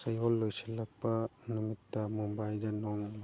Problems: low volume